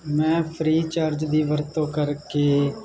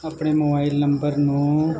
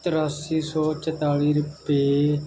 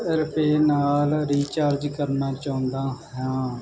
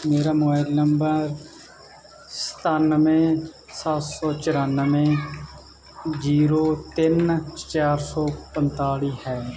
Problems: continuous background conversations